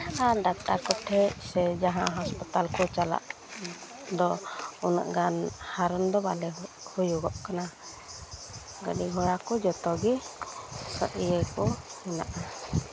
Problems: none marked